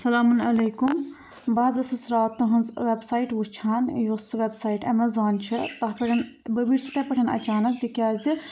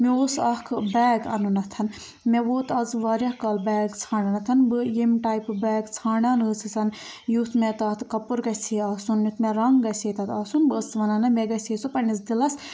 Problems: none marked